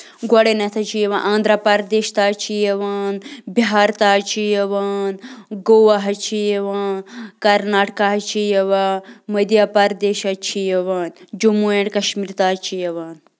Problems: constant background noise